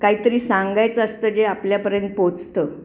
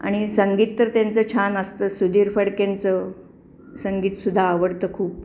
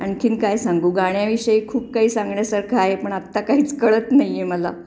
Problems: constant background noise, background conversations at intervals